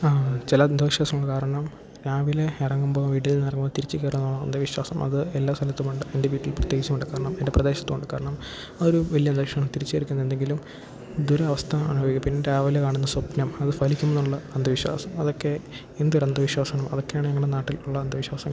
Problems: constant background noise